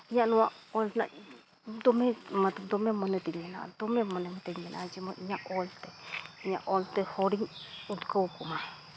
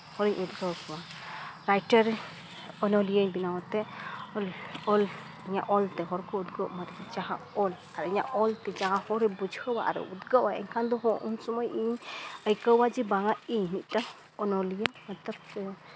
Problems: none marked